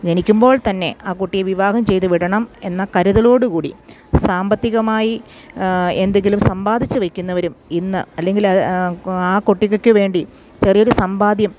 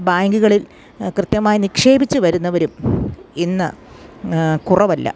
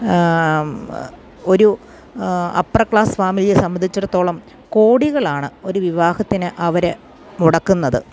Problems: none marked